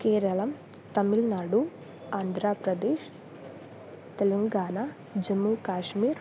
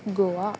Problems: constant background noise